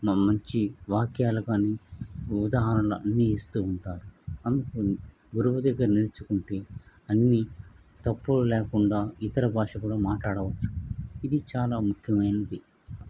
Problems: none marked